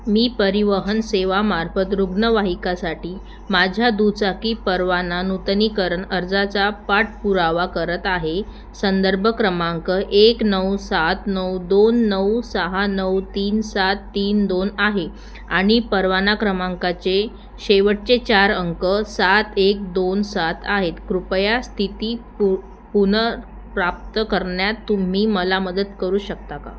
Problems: none marked